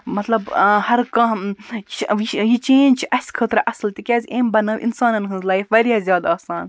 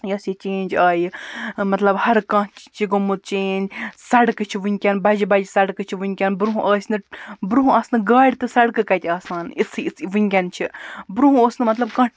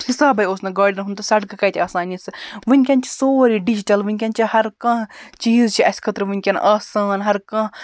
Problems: background sounds at intervals